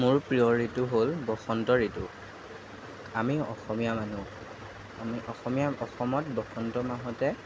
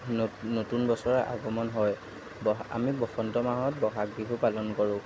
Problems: none marked